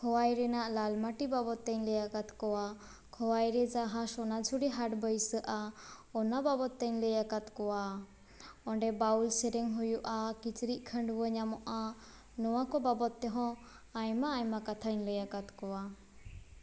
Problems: constant background noise